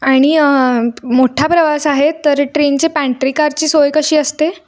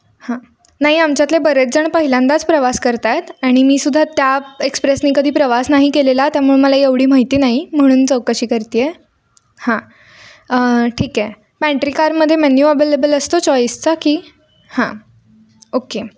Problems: none marked